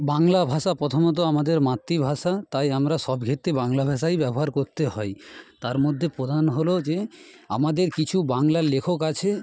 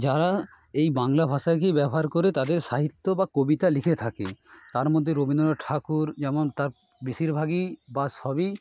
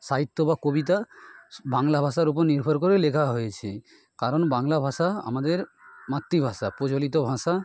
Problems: constant background noise